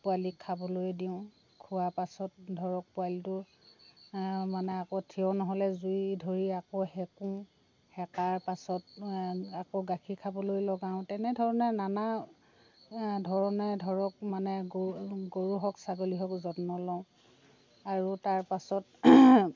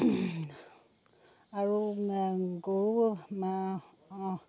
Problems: constant background noise, background conversations at intervals